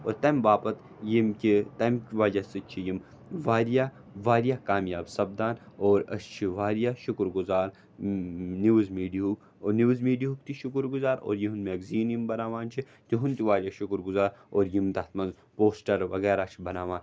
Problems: none marked